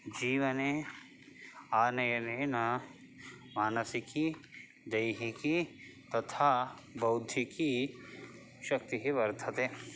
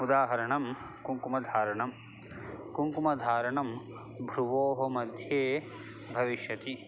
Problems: constant background noise